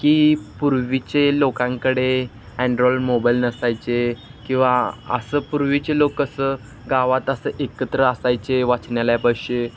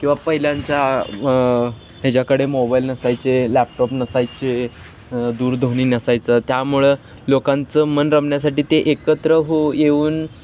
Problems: constant background noise